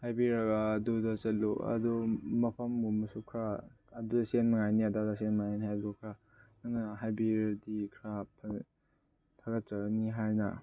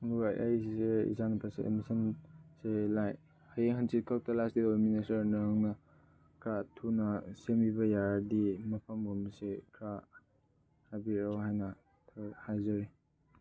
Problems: none marked